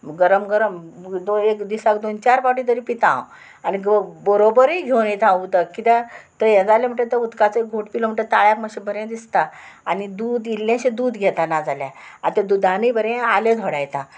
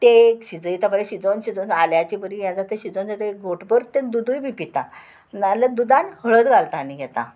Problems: constant background noise